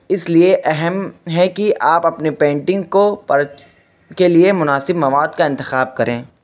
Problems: constant background noise